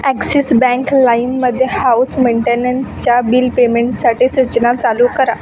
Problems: constant background noise, continuous background conversations